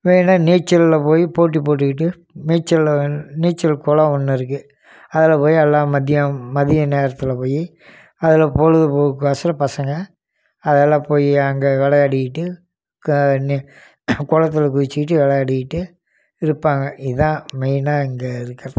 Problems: none marked